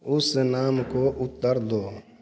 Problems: background sounds at intervals